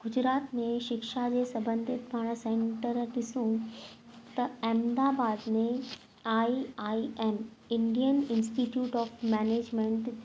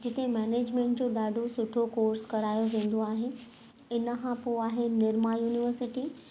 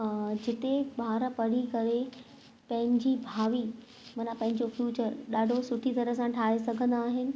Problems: constant background noise